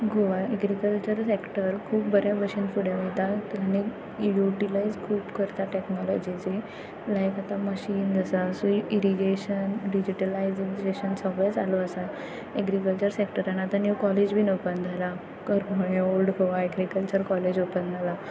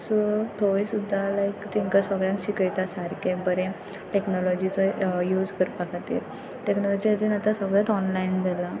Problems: none marked